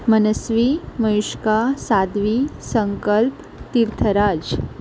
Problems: constant background noise